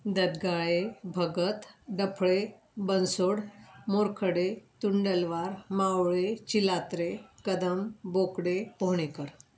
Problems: background sounds at intervals